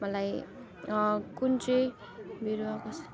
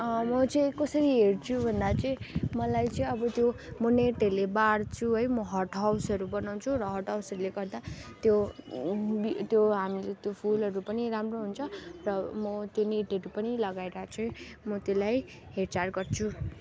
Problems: constant background noise, background conversations at intervals